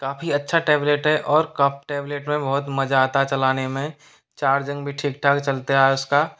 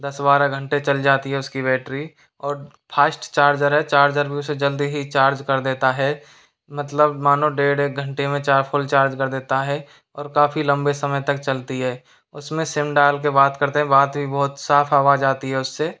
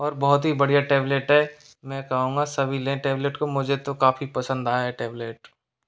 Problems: background sounds at intervals